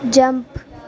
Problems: constant background noise